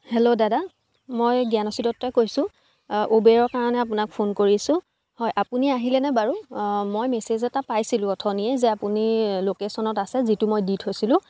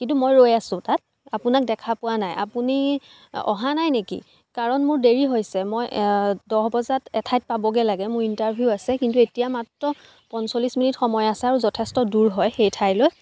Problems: background sounds at intervals, background conversations at intervals